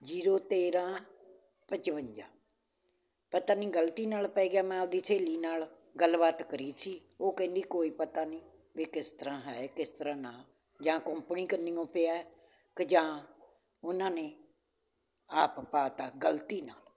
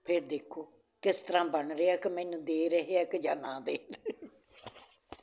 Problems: none marked